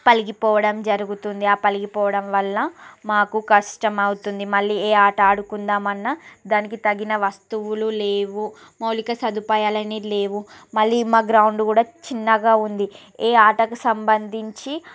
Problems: background sounds at intervals